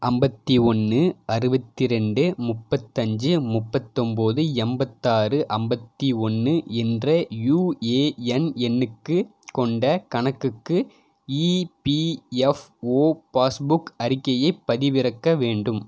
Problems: none marked